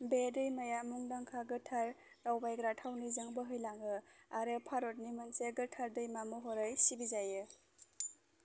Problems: constant background noise